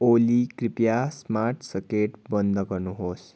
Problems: none marked